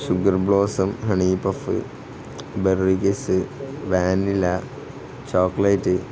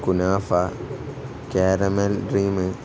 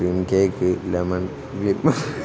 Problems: background sounds at intervals